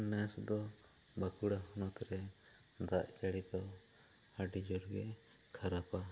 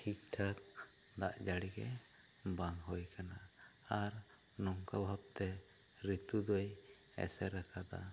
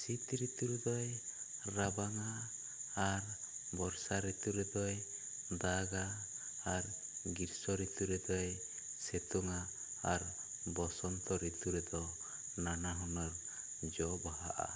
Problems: low volume